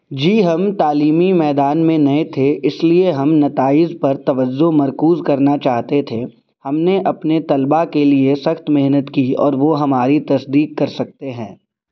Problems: none marked